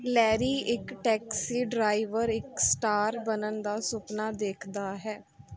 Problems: none marked